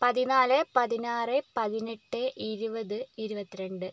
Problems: low volume